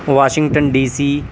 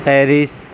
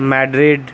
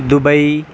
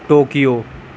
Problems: constant background noise